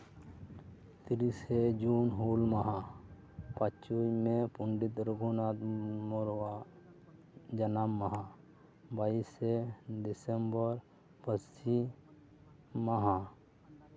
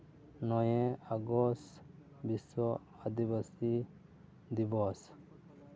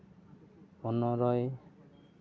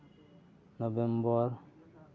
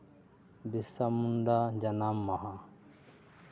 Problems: constant background noise